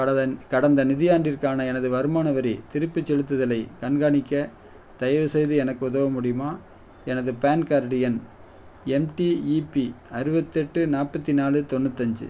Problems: none marked